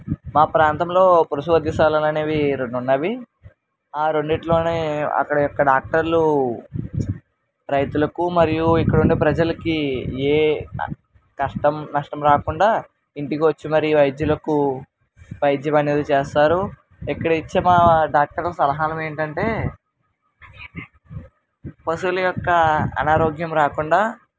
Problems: constant background noise